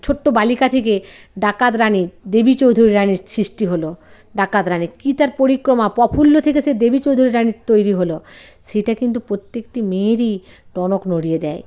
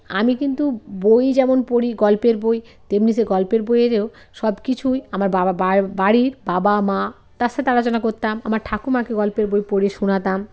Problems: constant background noise, background conversations at intervals